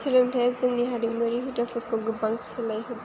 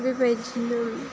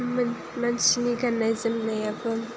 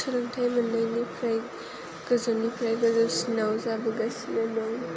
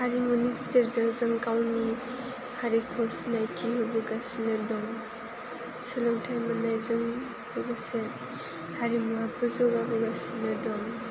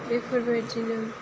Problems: constant background noise